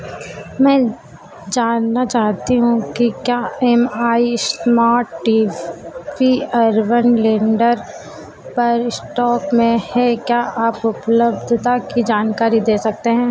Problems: constant background noise, echo